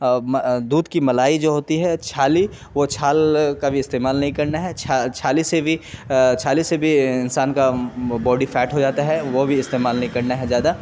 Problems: constant background noise